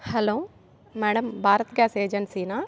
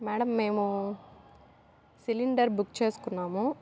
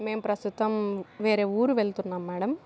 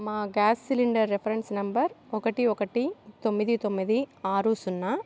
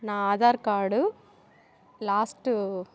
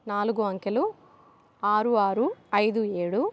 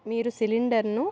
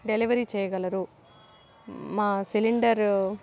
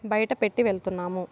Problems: constant background noise